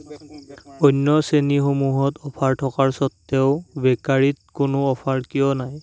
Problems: none marked